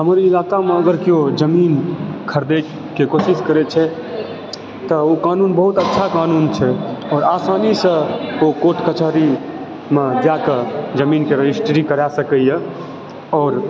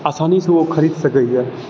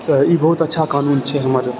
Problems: background conversations at intervals